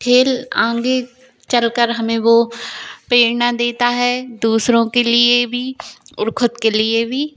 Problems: constant background noise